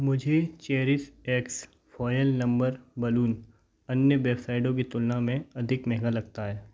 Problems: none marked